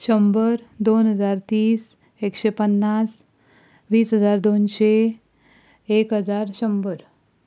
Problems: none marked